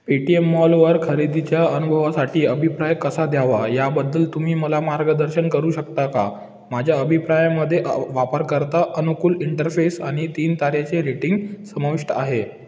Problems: background sounds at intervals